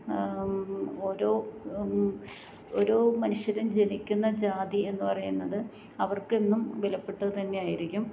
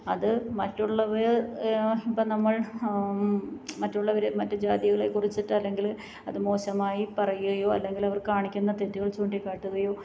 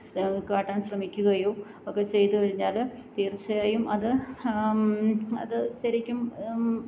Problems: background sounds at intervals